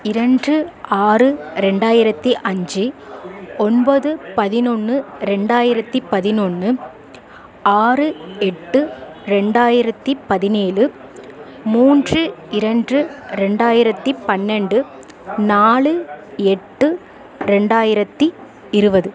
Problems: continuous background conversations